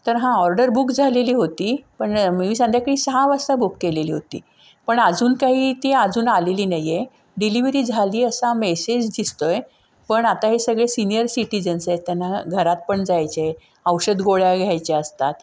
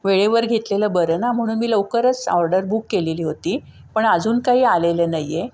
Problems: background sounds at intervals